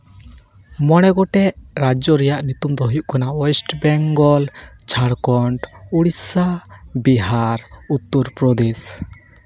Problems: constant background noise